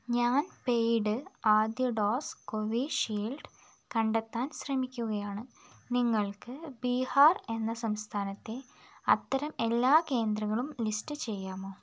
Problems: constant background noise